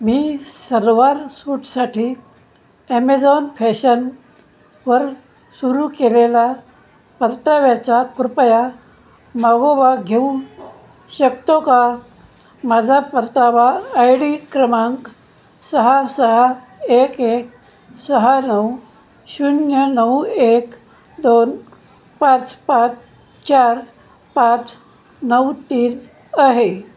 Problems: constant background noise